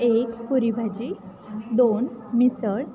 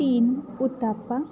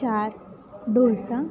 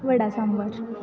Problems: constant background noise, background conversations at intervals